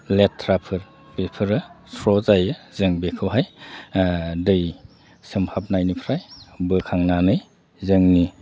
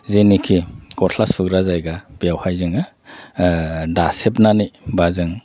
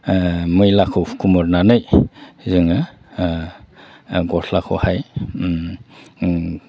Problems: none marked